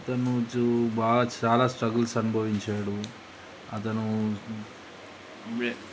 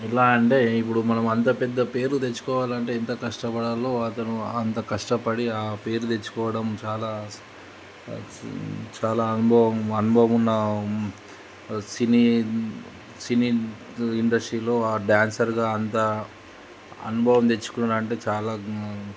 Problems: constant background noise